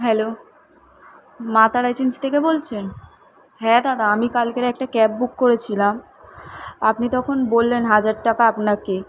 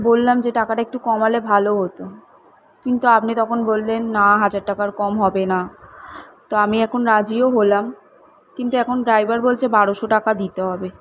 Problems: none marked